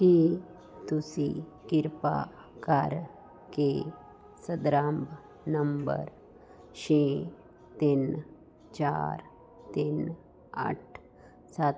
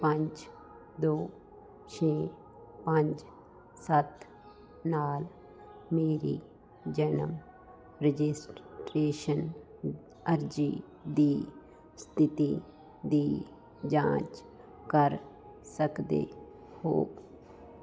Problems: none marked